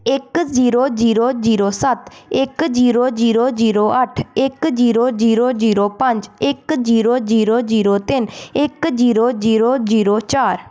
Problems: background sounds at intervals